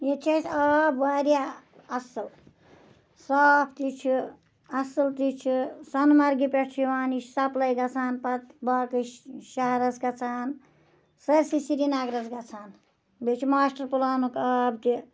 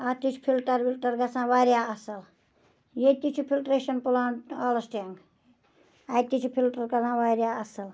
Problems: none marked